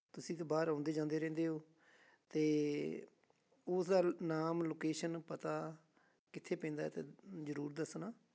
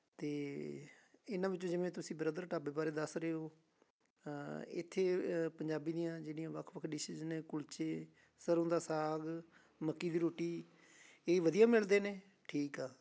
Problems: constant background noise